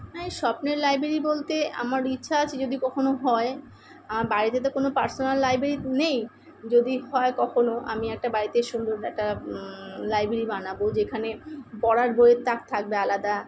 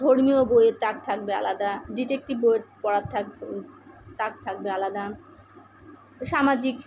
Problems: none marked